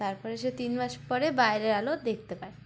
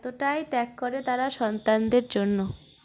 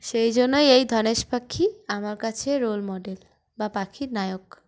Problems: background sounds at intervals